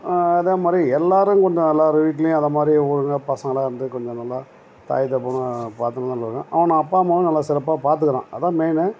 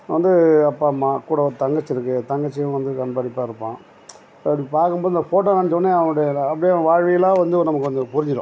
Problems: background sounds at intervals